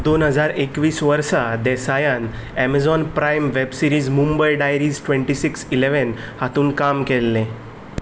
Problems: background sounds at intervals